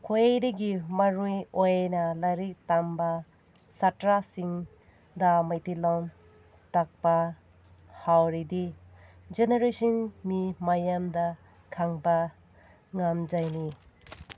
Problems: none marked